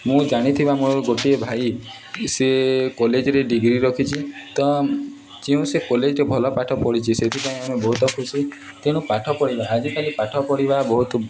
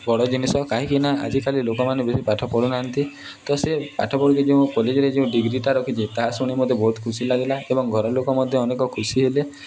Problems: background sounds at intervals, continuous background conversations